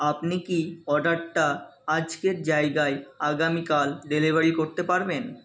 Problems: constant background noise, background conversations at intervals